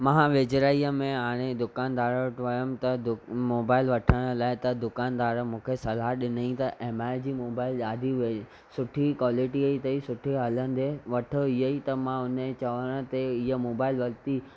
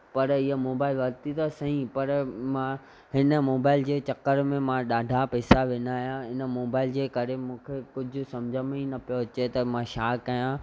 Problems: none marked